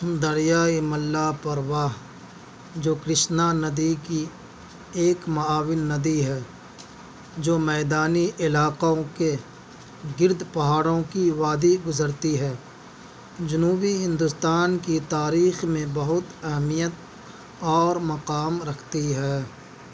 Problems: none marked